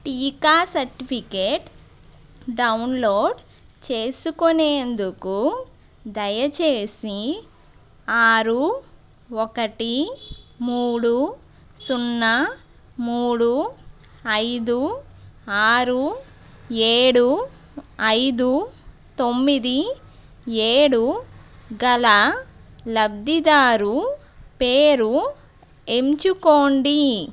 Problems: background sounds at intervals